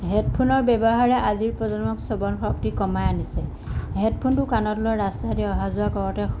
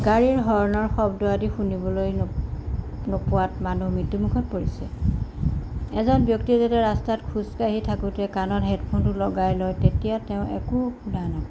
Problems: background sounds at intervals